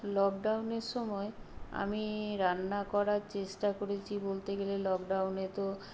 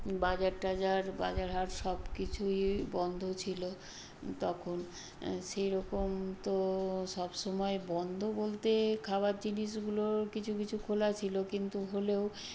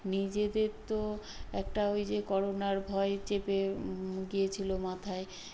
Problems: constant background noise